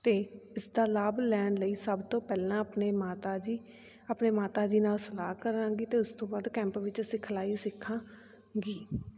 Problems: continuous background conversations